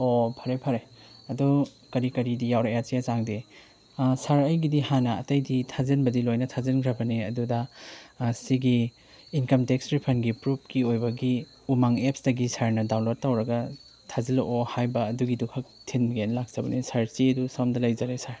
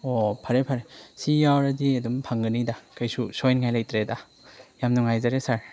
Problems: background sounds at intervals